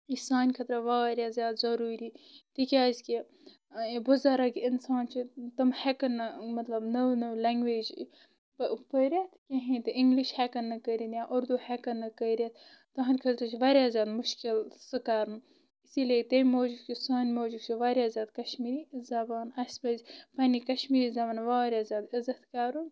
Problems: constant background noise